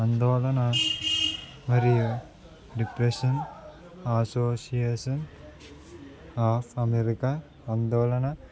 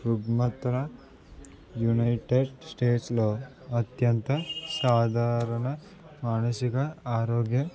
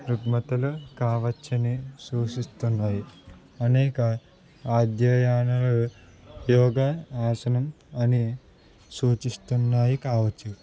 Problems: constant background noise